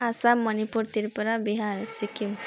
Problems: continuous background conversations